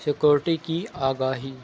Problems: constant background noise